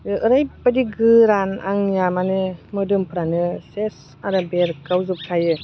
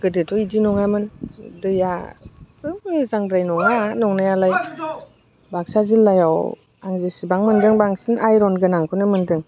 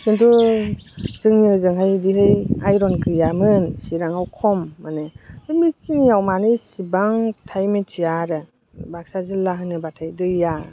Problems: constant background noise